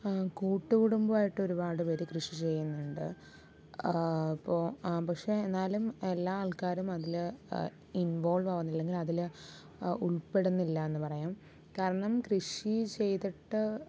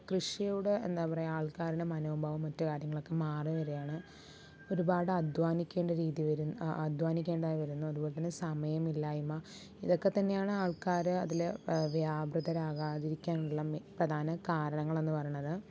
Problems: low volume